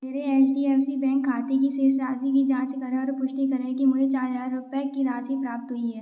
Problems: none marked